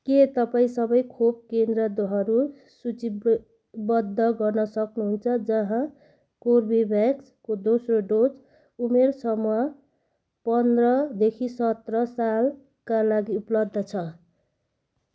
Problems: background sounds at intervals